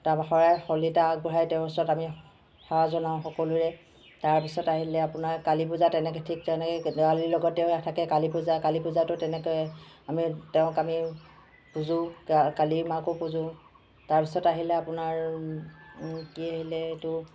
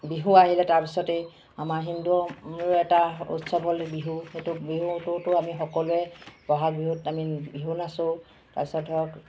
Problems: constant background noise